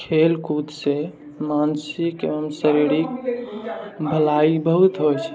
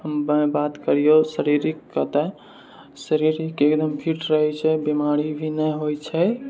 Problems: none marked